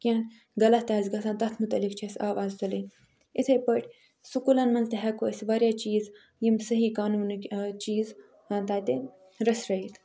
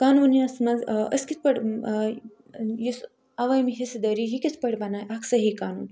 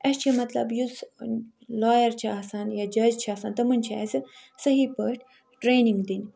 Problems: background sounds at intervals